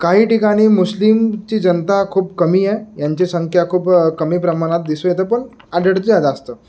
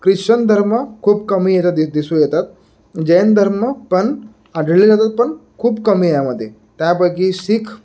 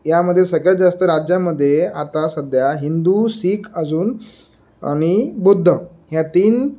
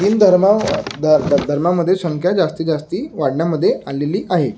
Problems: none marked